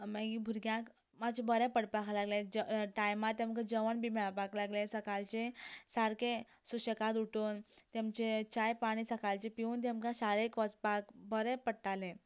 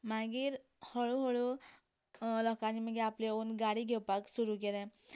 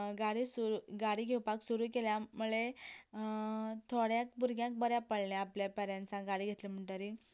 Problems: none marked